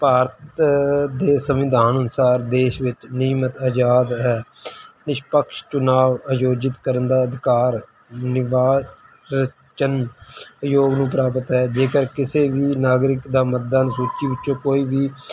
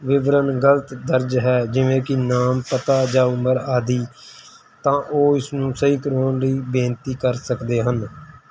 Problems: background sounds at intervals